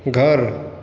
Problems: constant background noise, echo